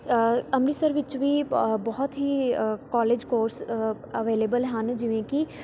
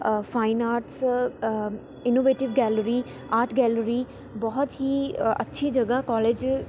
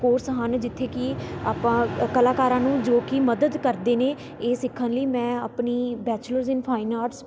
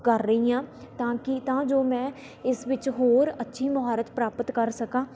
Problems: constant background noise